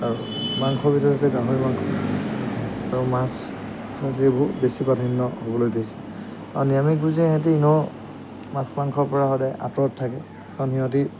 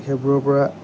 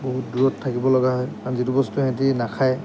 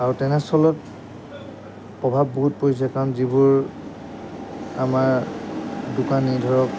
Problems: background sounds at intervals